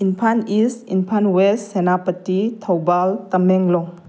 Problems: none marked